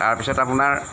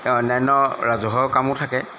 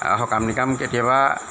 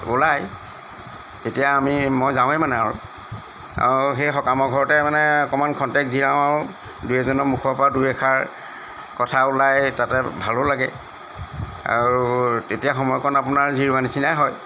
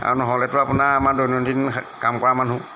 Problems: background sounds at intervals